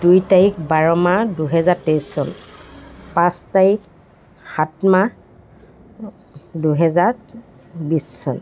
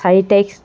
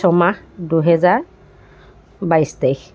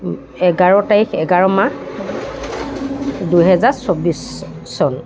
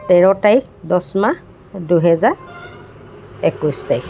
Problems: background sounds at intervals